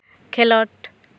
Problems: constant background noise